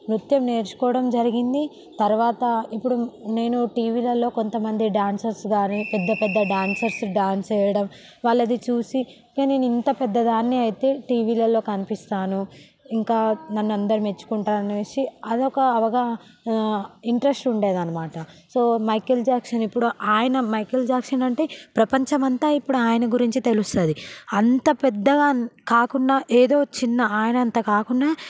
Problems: background sounds at intervals